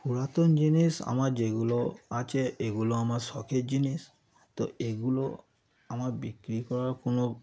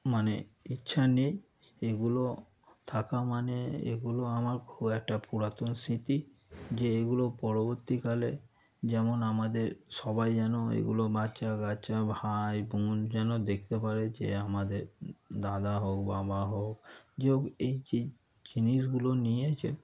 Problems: background sounds at intervals